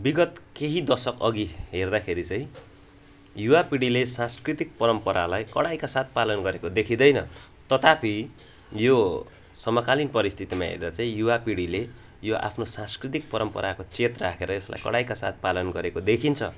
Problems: background sounds at intervals